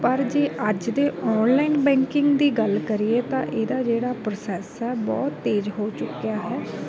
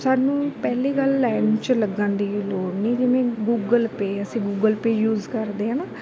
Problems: background sounds at intervals, background conversations at intervals